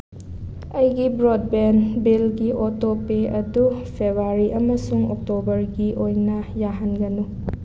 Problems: constant background noise